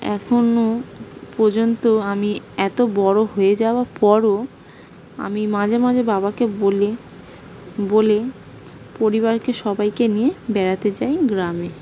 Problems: background sounds at intervals